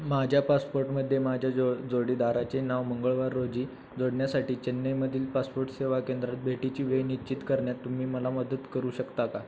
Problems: none marked